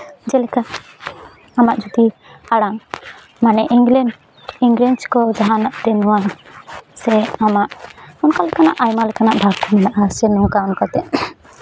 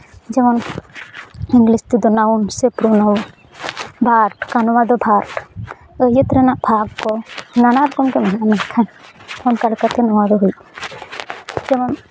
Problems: none marked